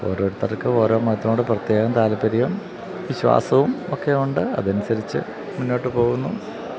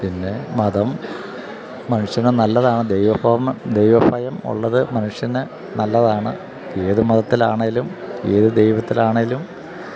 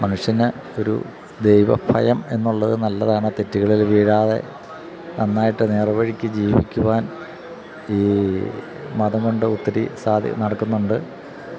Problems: constant background noise